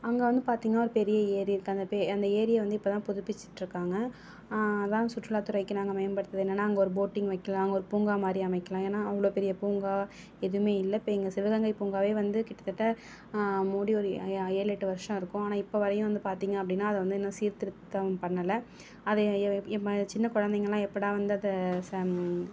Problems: none marked